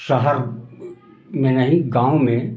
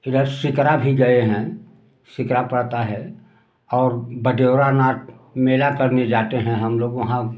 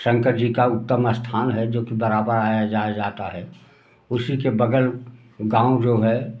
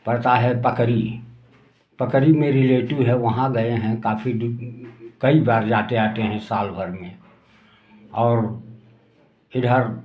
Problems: background sounds at intervals